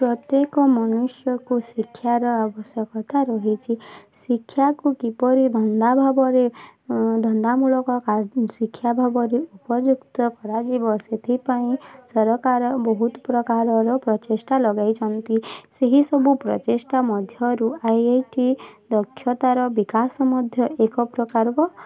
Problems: constant background noise, continuous background conversations